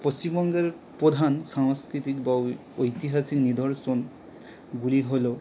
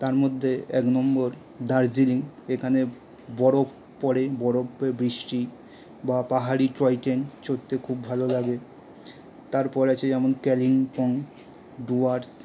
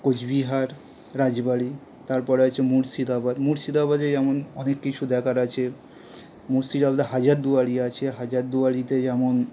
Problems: none marked